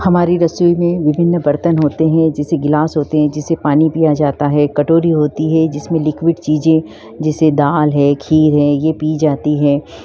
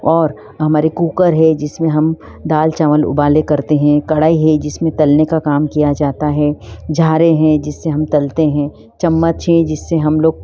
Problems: background sounds at intervals